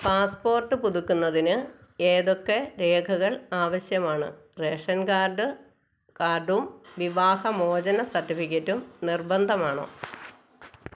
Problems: none marked